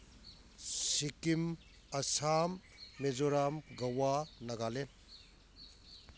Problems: background sounds at intervals